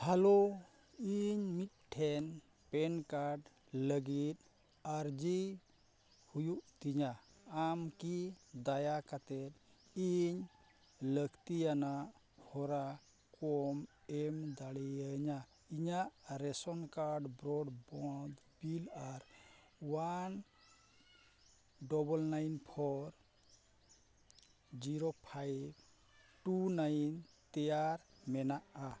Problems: none marked